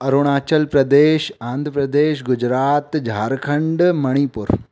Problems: none marked